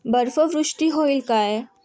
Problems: constant background noise